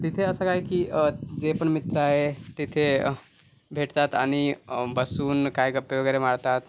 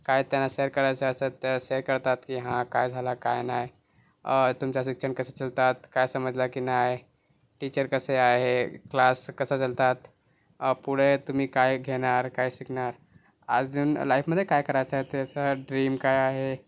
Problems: constant background noise